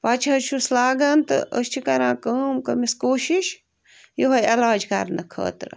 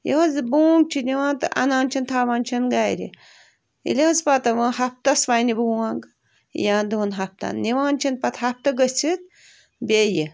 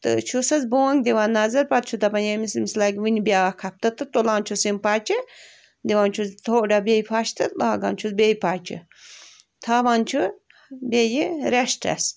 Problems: none marked